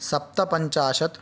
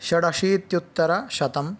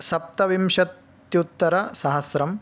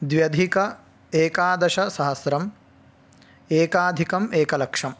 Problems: none marked